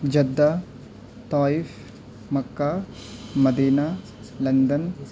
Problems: constant background noise, low volume